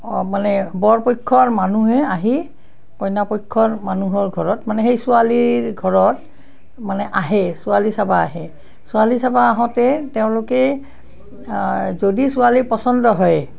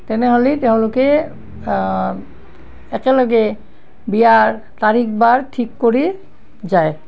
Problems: background sounds at intervals